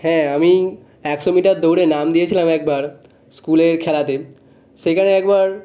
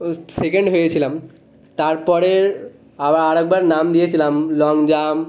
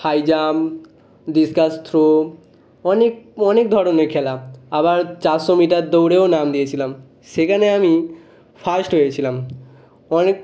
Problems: none marked